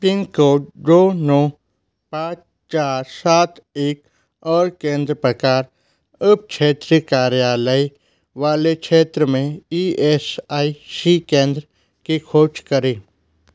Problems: constant background noise